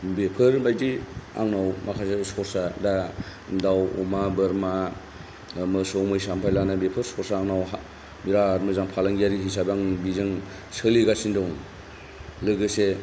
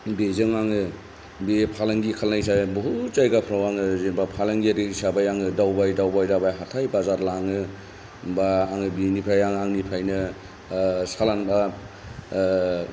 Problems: none marked